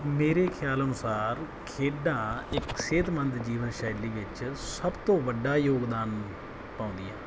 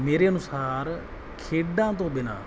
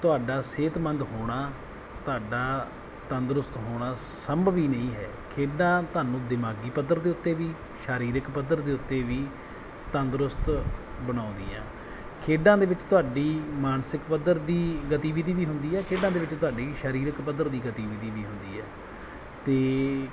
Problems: background sounds at intervals